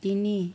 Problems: none marked